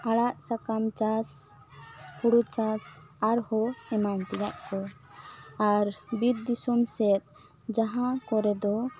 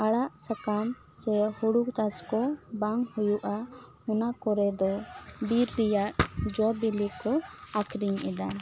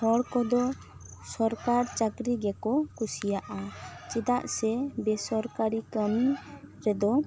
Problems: background sounds at intervals